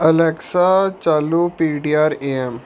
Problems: background sounds at intervals